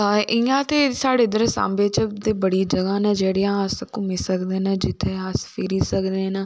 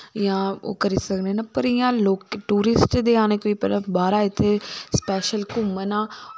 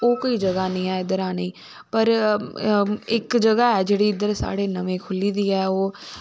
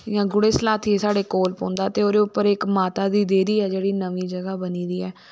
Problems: none marked